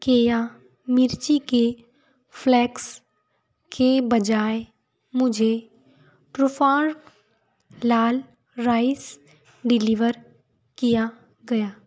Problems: none marked